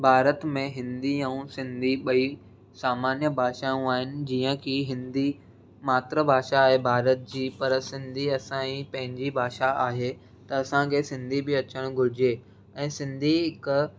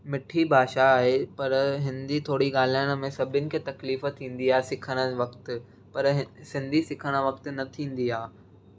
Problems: none marked